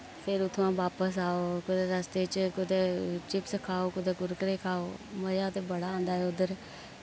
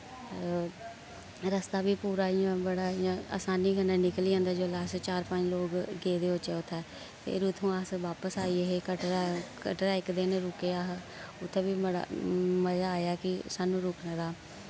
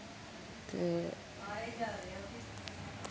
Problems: constant background noise